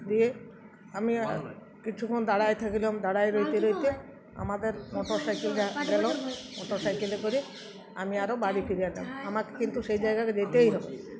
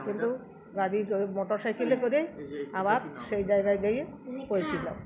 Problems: background sounds at intervals